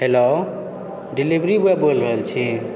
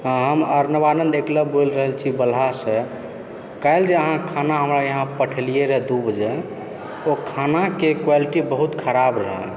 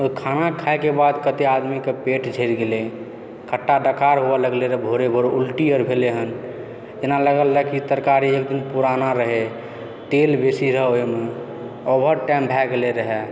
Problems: background sounds at intervals